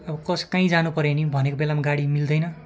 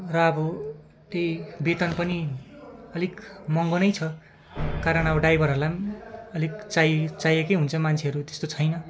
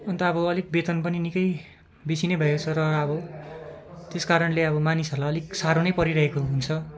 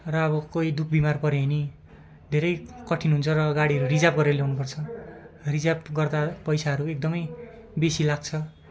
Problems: none marked